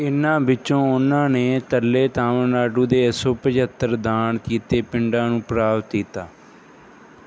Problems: background sounds at intervals